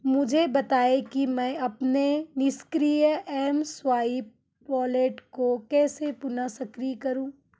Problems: none marked